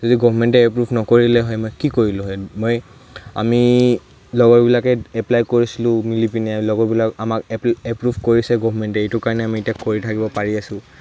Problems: none marked